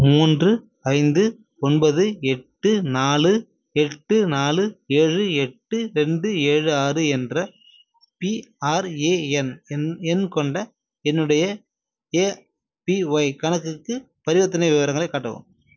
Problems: none marked